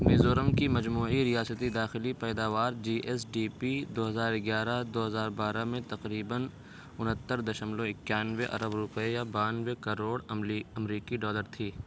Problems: constant background noise